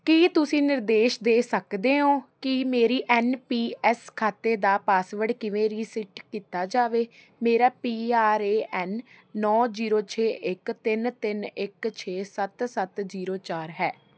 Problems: none marked